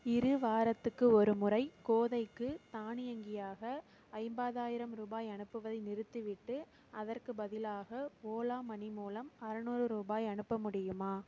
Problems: constant background noise